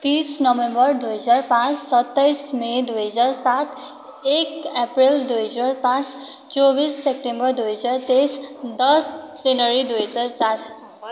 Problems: constant background noise